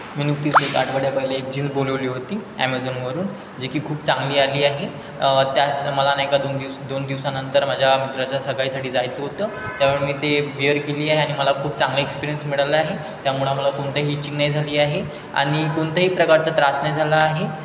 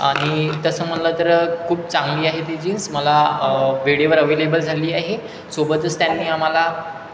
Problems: constant background noise, background conversations at intervals